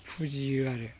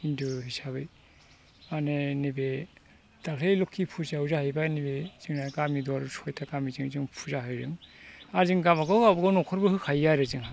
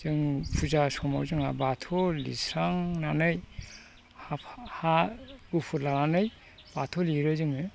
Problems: constant background noise